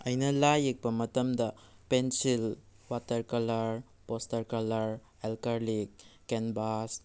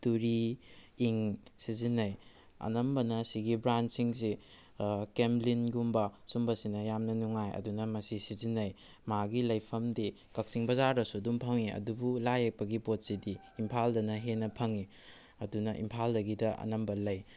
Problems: background sounds at intervals